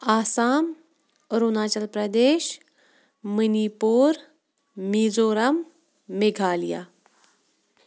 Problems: background sounds at intervals